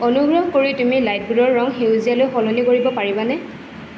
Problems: constant background noise